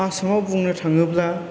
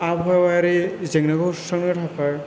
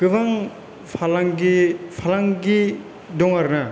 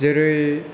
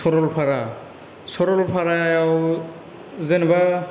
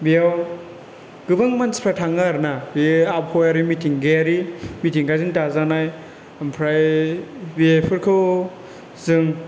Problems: background sounds at intervals